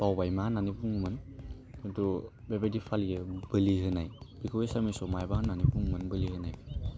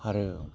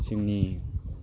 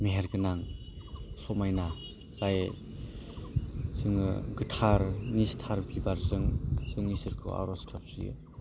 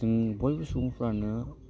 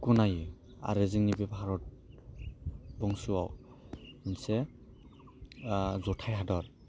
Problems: low volume